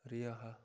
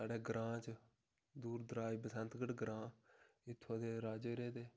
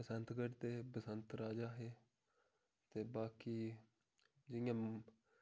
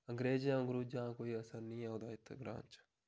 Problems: none marked